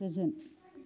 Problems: low volume